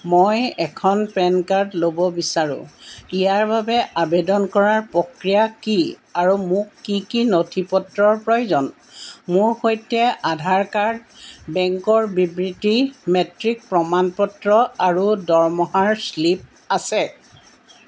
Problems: background sounds at intervals